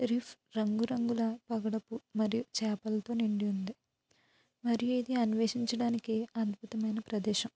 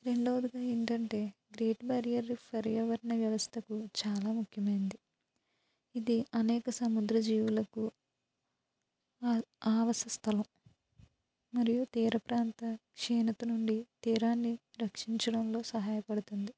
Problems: low volume